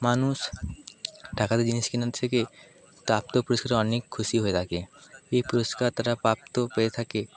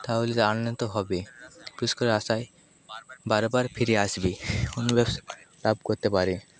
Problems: echo